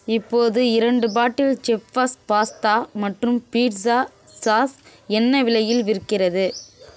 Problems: constant background noise